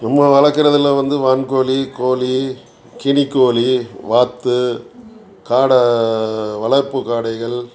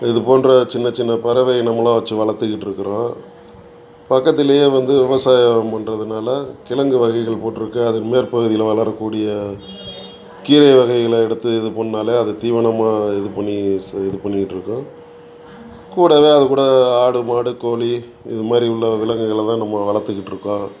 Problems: constant background noise